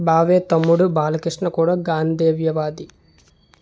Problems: none marked